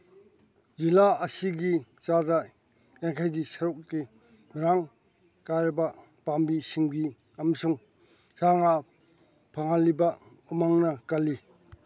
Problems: none marked